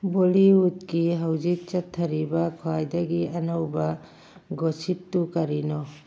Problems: background sounds at intervals